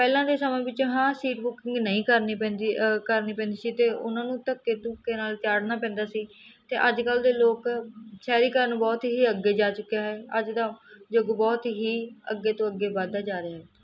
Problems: none marked